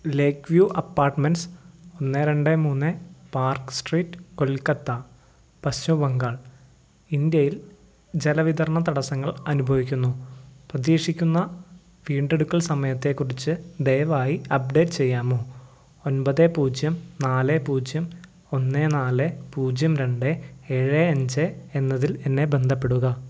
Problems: low volume